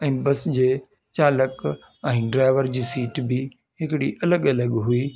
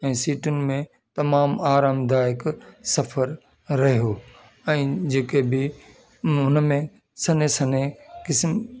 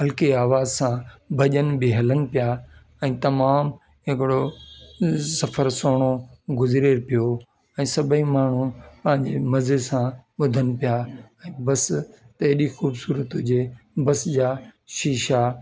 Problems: constant background noise